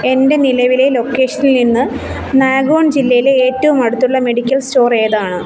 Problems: constant background noise